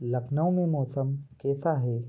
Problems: constant background noise